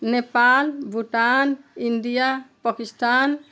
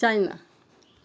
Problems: background sounds at intervals